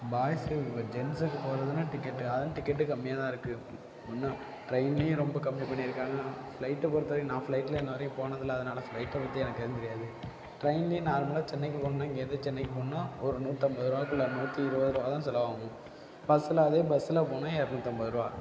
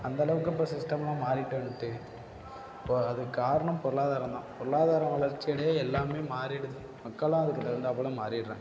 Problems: constant background noise, low volume